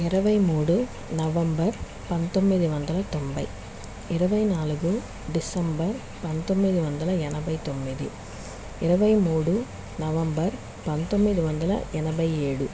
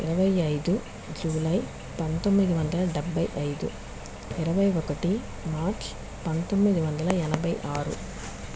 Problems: constant background noise